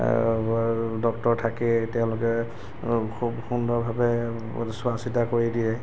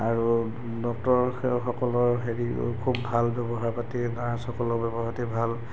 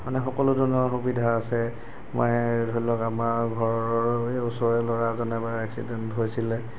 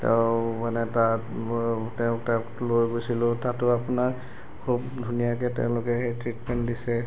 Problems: background sounds at intervals